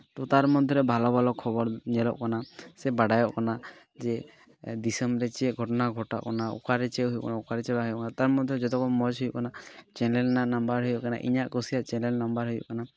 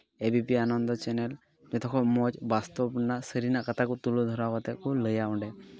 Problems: background sounds at intervals, background conversations at intervals